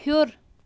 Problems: constant background noise